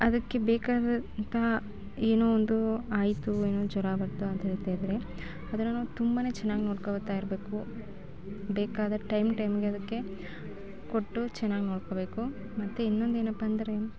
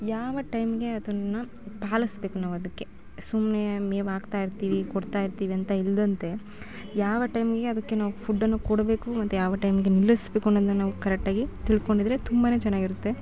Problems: background sounds at intervals